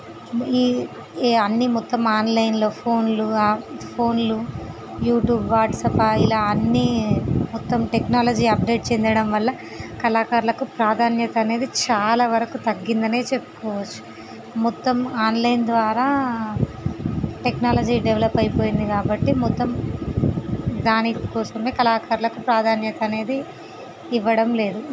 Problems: constant background noise